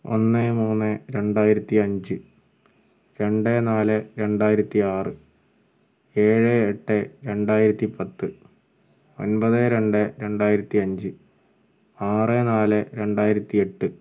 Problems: background sounds at intervals